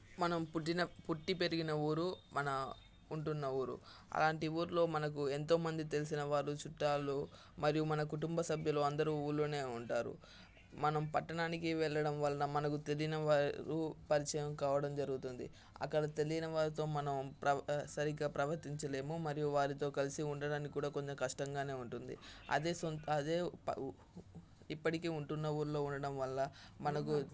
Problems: constant background noise, background conversations at intervals